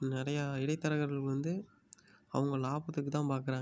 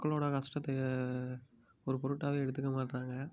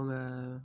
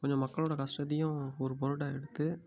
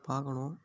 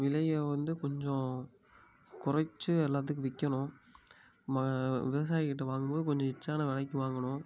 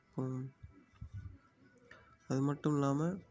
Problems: low volume